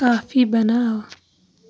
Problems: background sounds at intervals